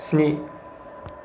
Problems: none marked